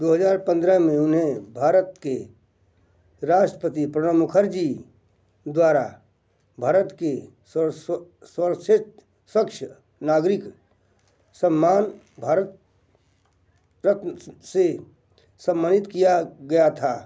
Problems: none marked